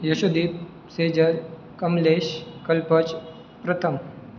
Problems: none marked